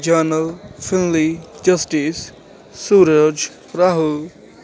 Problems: none marked